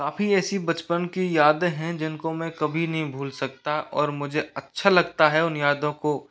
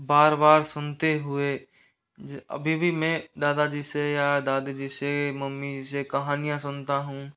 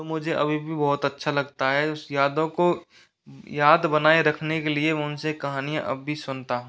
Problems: constant background noise